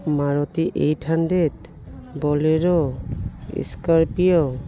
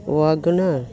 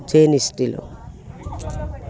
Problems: background sounds at intervals